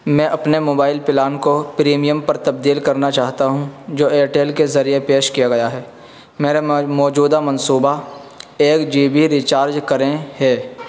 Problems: constant background noise